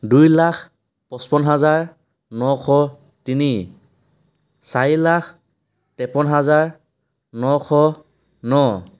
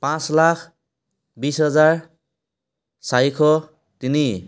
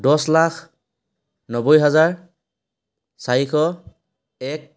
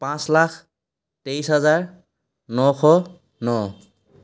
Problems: background sounds at intervals